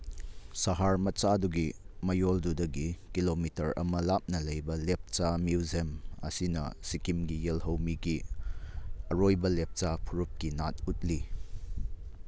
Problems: none marked